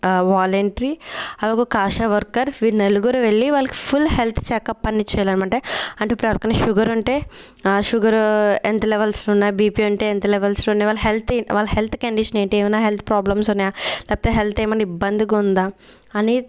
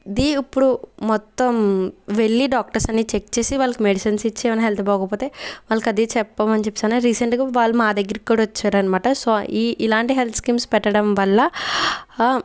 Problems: none marked